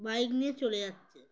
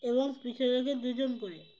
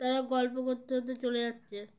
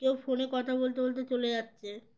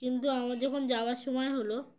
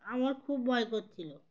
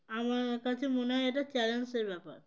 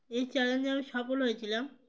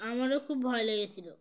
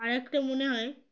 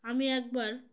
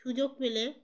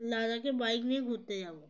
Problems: none marked